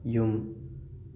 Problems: constant background noise